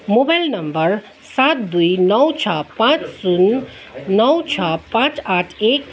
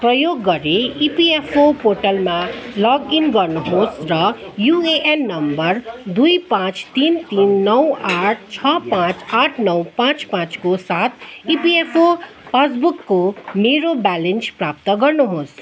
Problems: constant background noise, continuous background conversations